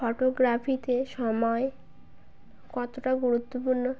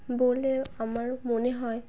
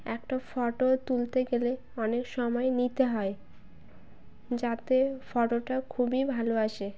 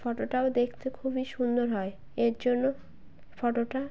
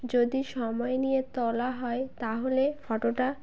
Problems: none marked